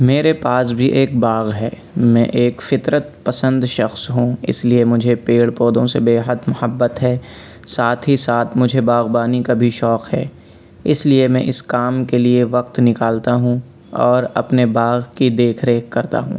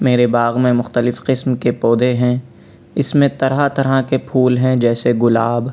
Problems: background sounds at intervals, background conversations at intervals